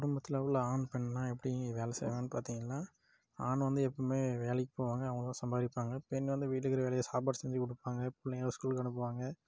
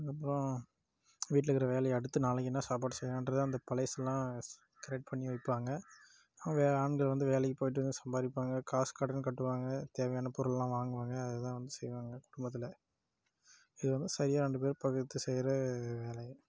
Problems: background sounds at intervals